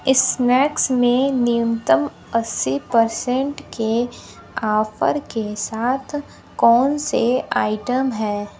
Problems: constant background noise